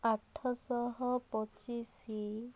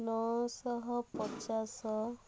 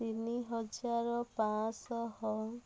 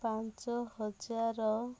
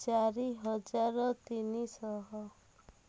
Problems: low volume